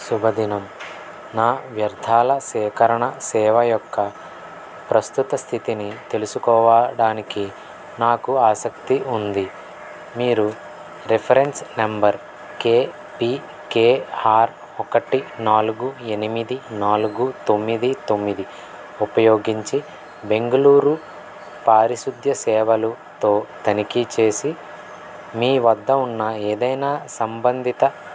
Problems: constant background noise